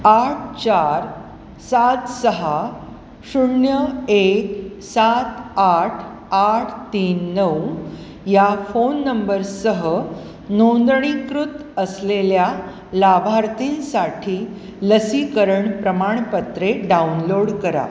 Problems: background sounds at intervals